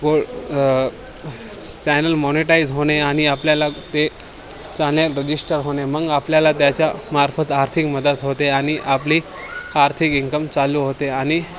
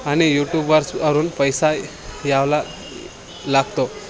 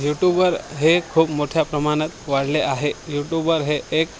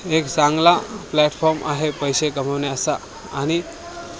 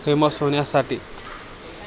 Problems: none marked